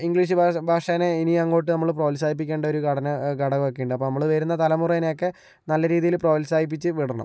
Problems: low volume